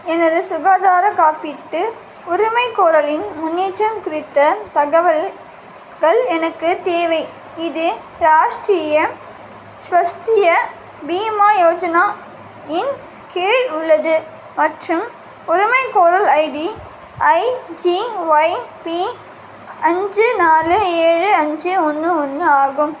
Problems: constant background noise